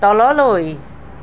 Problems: none marked